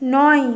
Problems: constant background noise